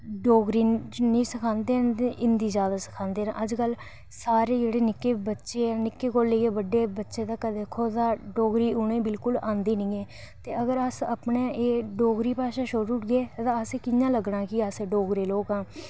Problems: none marked